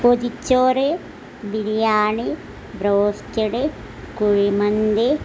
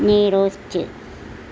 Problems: none marked